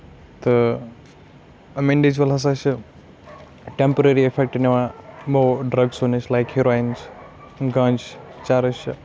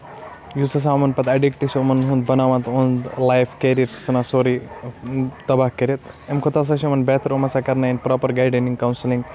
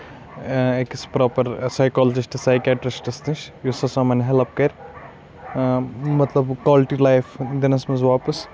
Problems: constant background noise